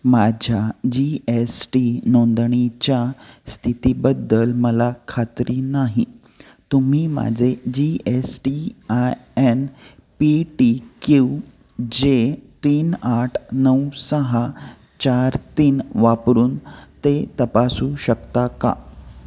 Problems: constant background noise